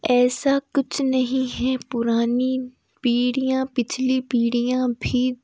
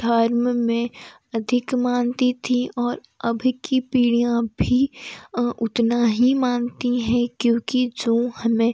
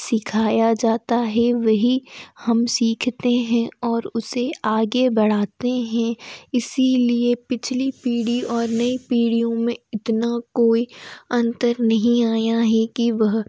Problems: none marked